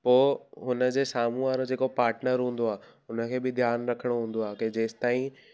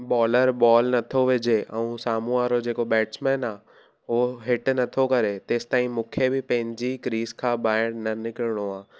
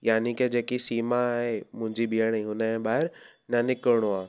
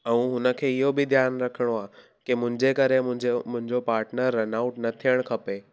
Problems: background sounds at intervals